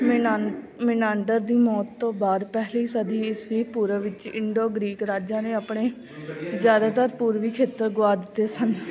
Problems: continuous background conversations